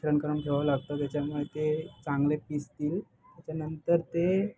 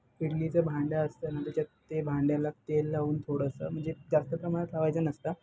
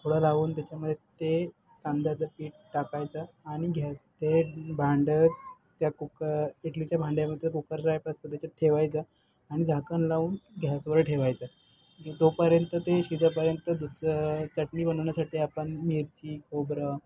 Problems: background sounds at intervals, background conversations at intervals